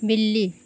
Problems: none marked